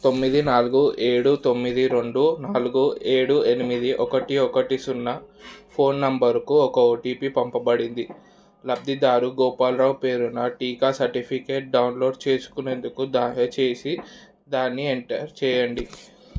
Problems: background sounds at intervals